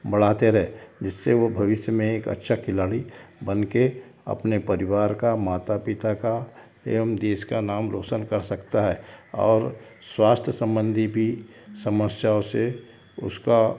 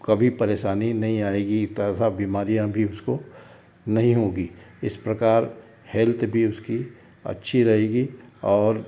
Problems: background sounds at intervals